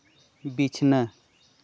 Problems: none marked